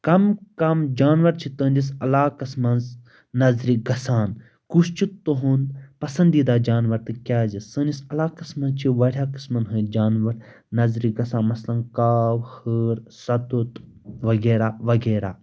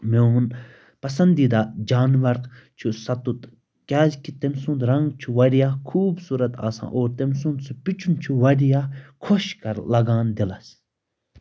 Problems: constant background noise